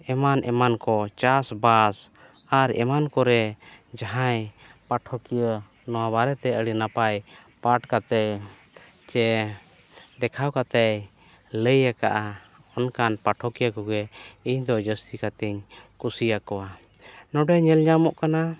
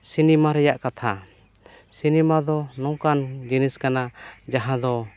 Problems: background sounds at intervals